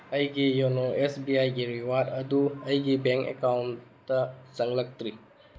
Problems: background sounds at intervals